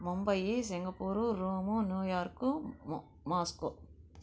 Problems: low volume